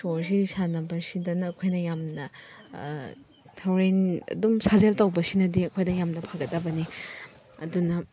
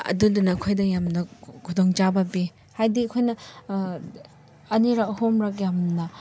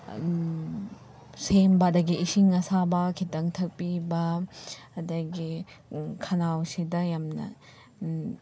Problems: none marked